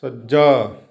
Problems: none marked